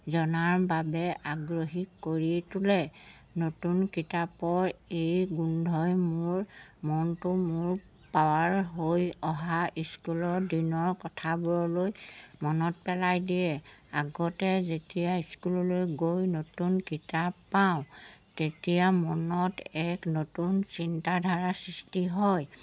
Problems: background sounds at intervals